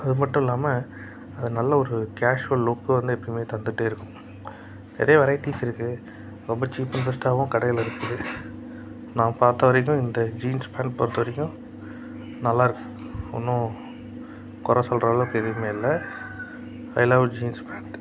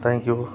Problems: background sounds at intervals